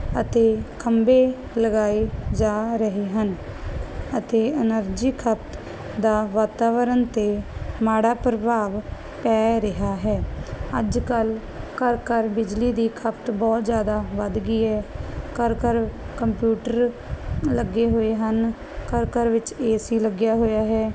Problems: none marked